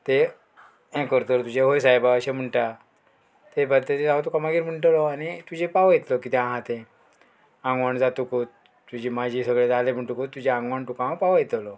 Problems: background sounds at intervals